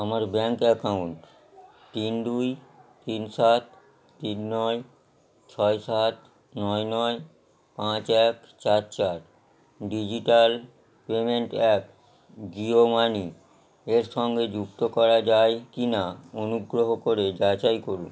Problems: background sounds at intervals